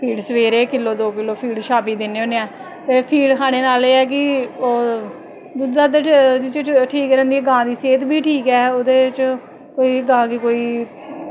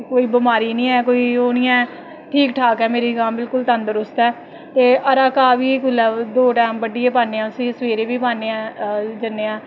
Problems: none marked